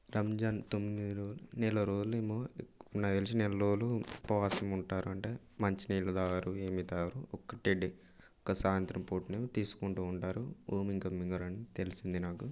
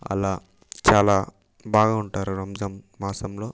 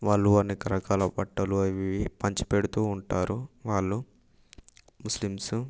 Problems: none marked